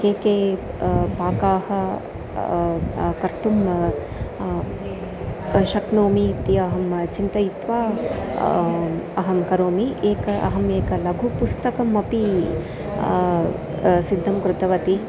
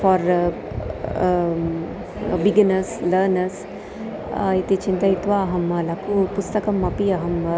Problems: none marked